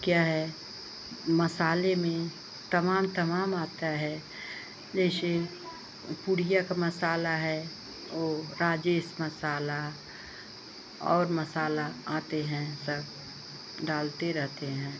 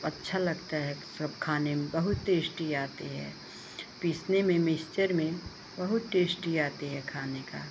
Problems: constant background noise